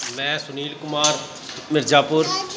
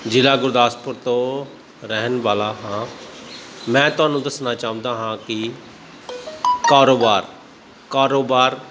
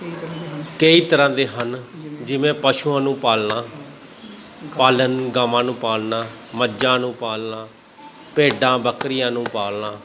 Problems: constant background noise, continuous background conversations